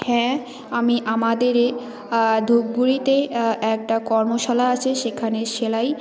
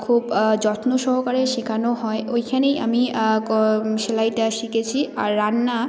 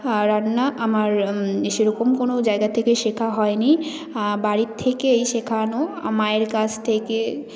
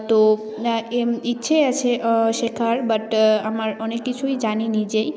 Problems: none marked